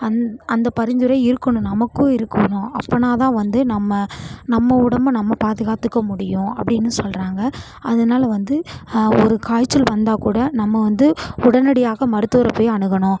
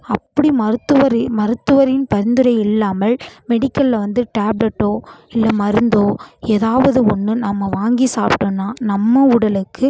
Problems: background sounds at intervals